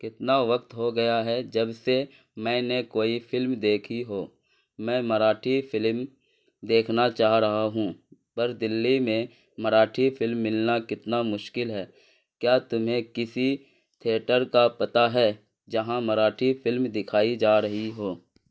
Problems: none marked